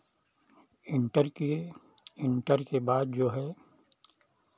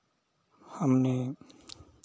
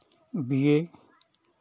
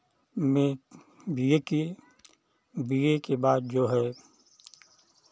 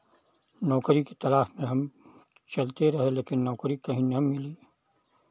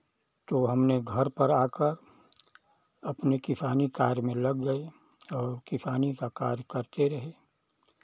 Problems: none marked